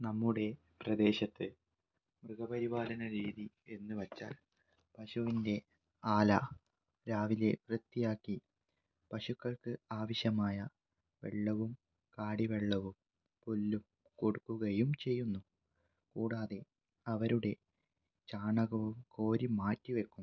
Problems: low volume